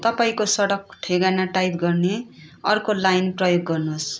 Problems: continuous background conversations